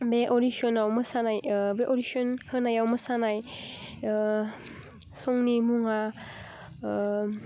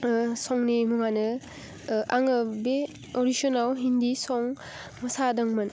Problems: none marked